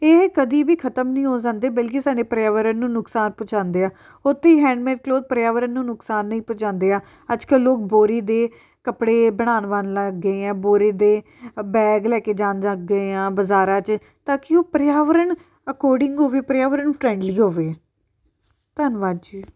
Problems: none marked